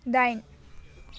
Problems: low volume